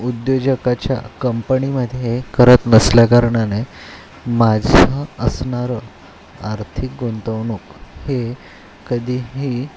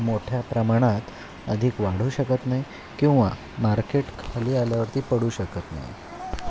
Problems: constant background noise